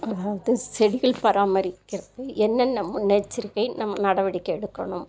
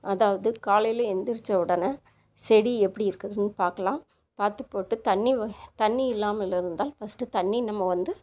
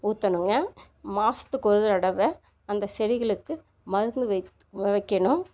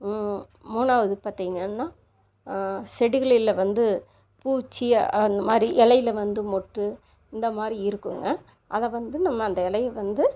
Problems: constant background noise